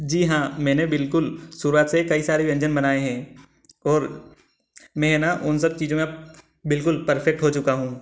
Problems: none marked